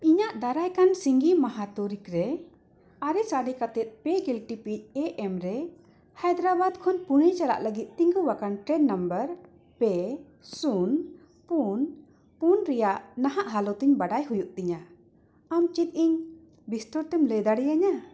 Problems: background sounds at intervals